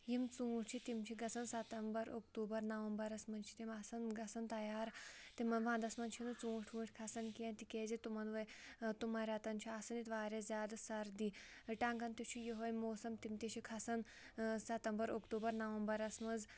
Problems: none marked